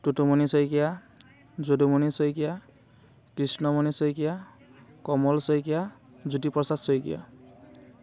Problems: constant background noise